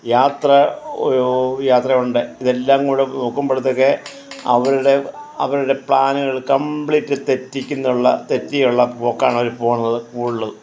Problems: none marked